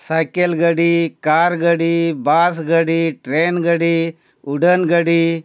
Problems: none marked